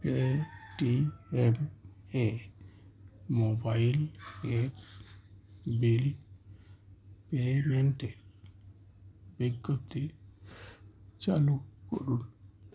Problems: constant background noise